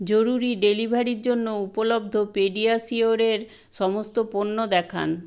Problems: constant background noise